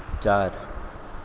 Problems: background sounds at intervals